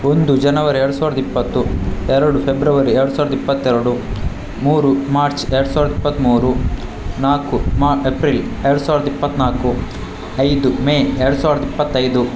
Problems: constant background noise